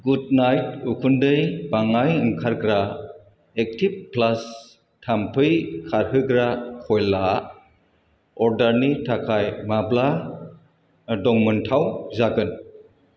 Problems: constant background noise